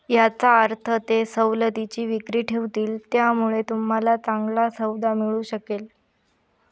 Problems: none marked